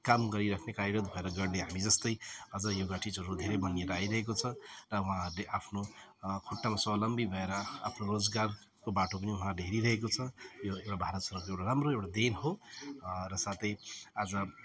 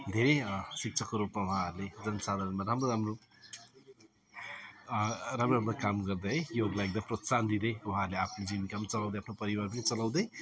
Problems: background sounds at intervals